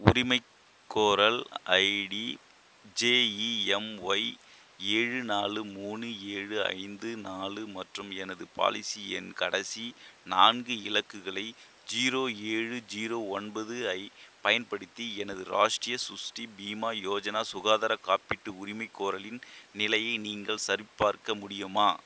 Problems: constant background noise